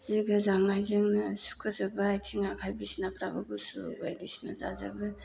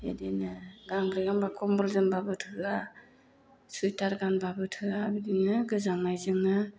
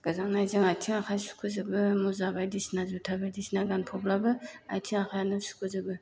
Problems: low volume